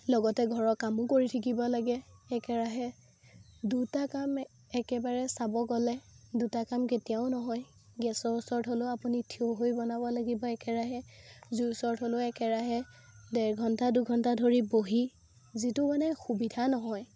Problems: constant background noise